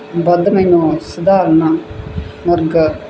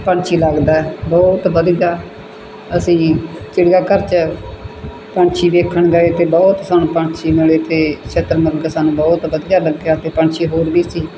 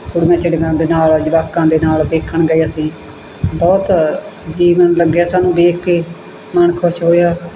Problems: background sounds at intervals